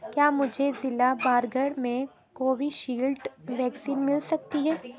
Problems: constant background noise